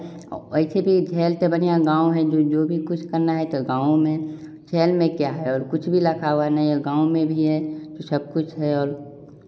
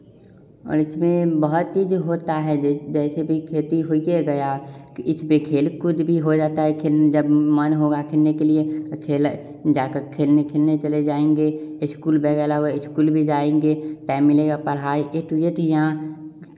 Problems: background sounds at intervals, echo